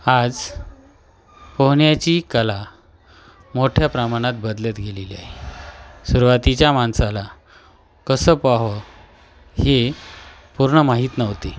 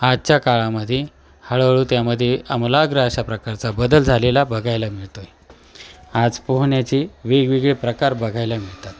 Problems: none marked